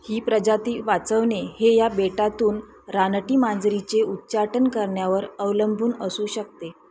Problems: constant background noise, background conversations at intervals